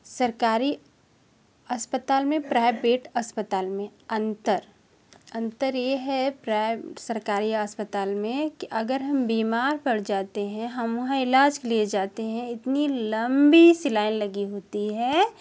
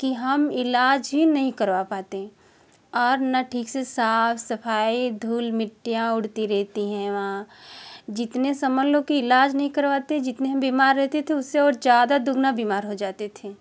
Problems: none marked